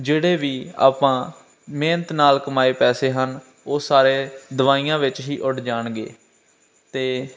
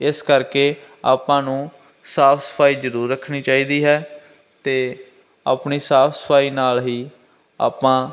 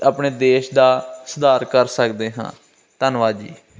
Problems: none marked